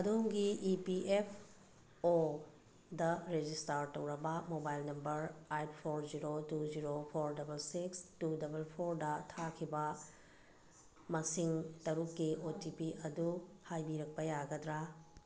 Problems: background sounds at intervals